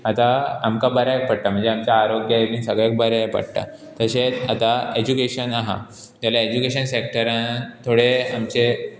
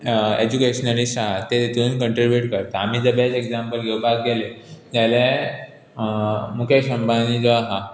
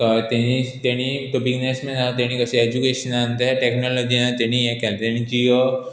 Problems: background sounds at intervals